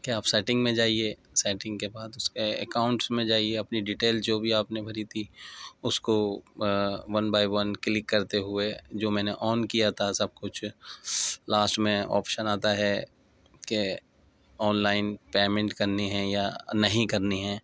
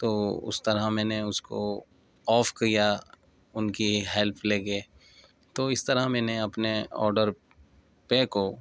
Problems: none marked